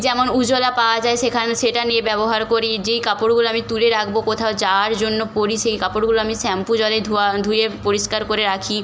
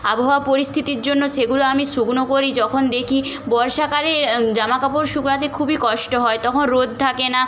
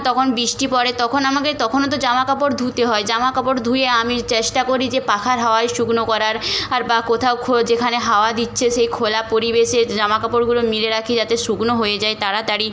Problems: none marked